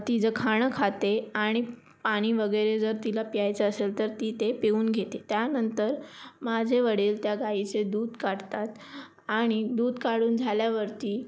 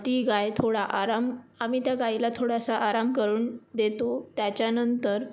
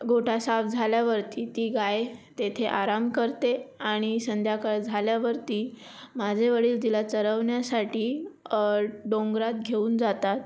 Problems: constant background noise